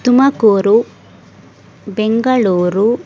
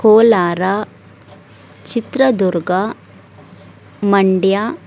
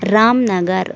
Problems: none marked